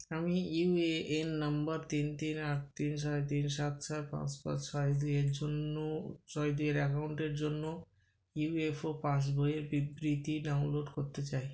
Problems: background sounds at intervals